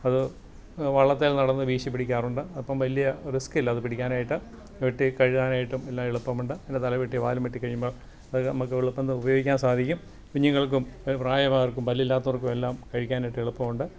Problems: none marked